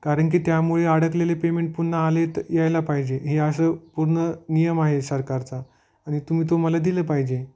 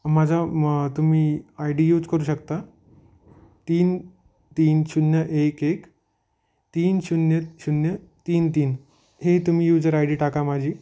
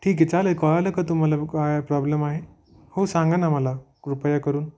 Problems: none marked